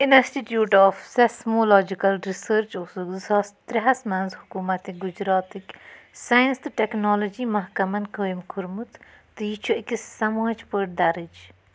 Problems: constant background noise